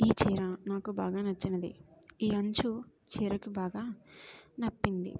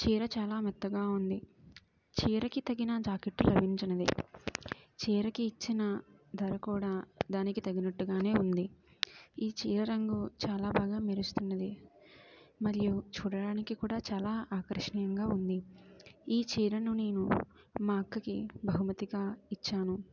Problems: background sounds at intervals, low volume